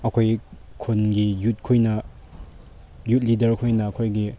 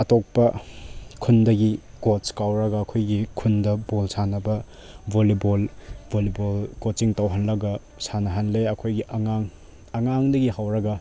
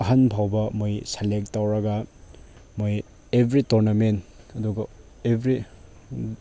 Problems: none marked